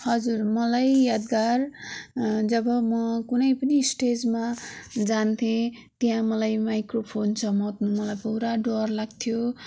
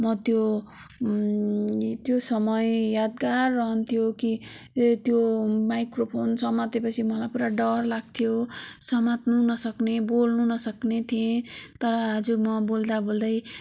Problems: background sounds at intervals